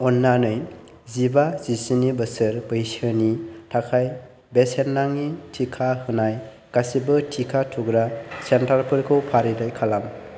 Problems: constant background noise